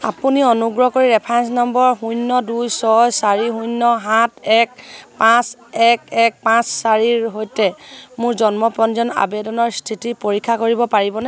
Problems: none marked